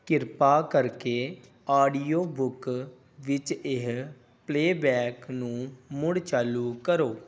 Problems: background sounds at intervals